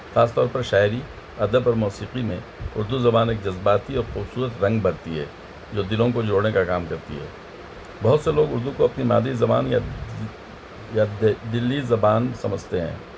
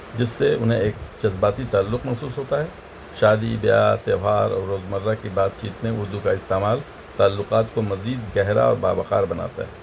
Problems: constant background noise